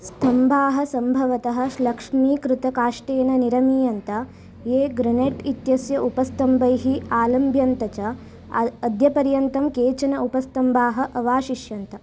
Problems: none marked